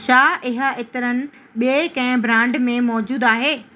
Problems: constant background noise